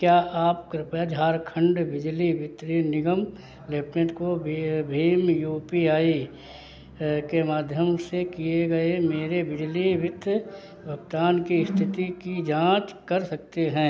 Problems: background sounds at intervals